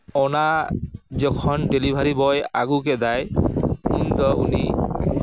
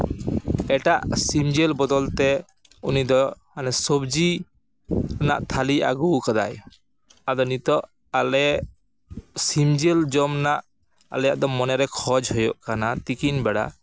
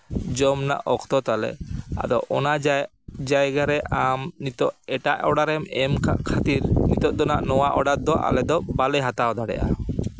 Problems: background sounds at intervals